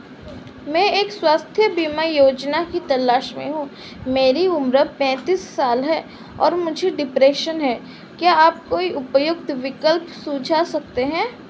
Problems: constant background noise